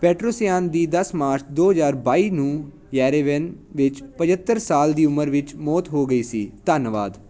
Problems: constant background noise